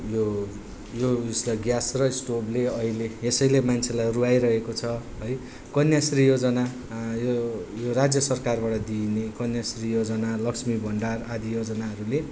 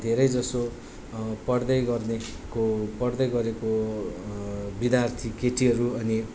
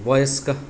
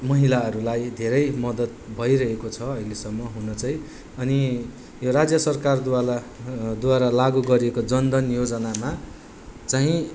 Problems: none marked